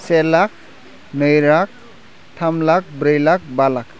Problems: constant background noise